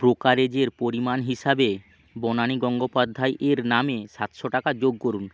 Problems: none marked